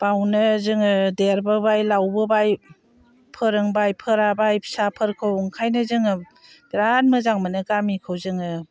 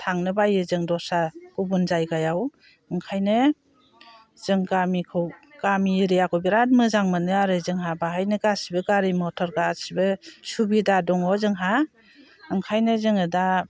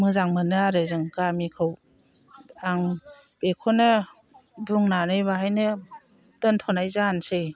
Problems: constant background noise